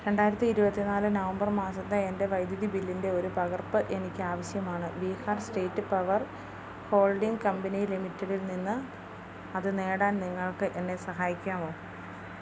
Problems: low volume